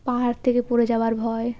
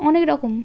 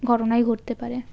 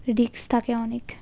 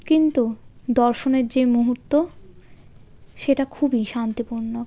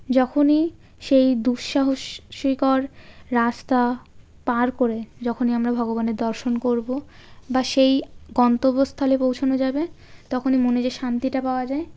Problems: background sounds at intervals